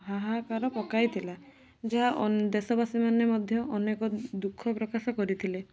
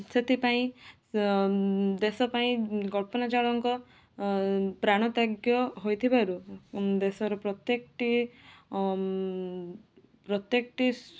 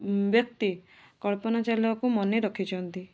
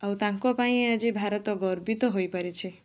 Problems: none marked